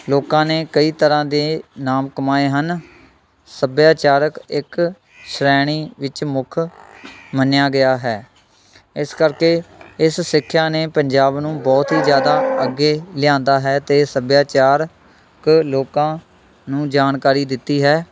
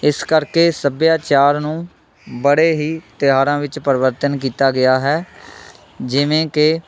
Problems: constant background noise